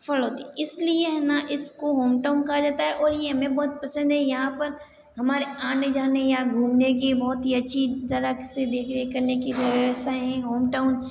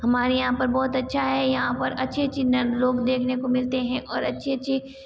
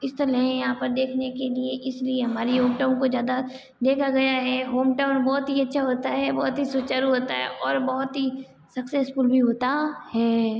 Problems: background sounds at intervals